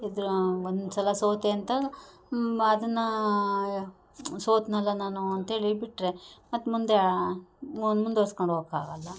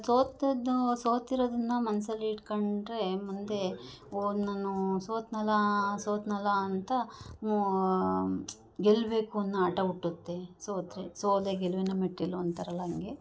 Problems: none marked